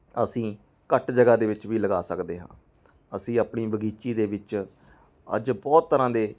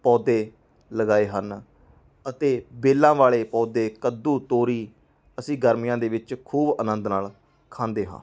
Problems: background sounds at intervals, background conversations at intervals